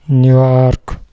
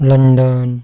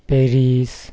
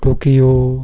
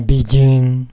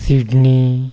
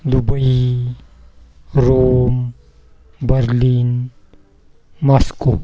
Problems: none marked